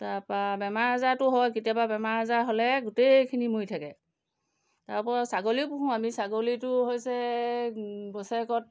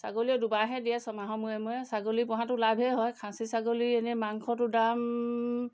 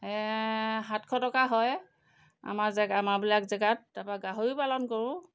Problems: background sounds at intervals